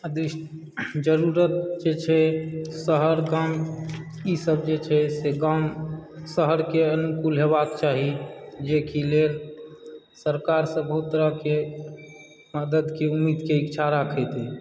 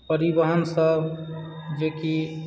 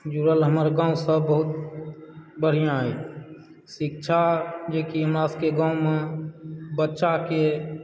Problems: background sounds at intervals